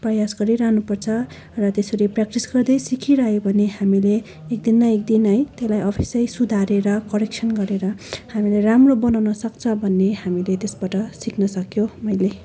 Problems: constant background noise, continuous background conversations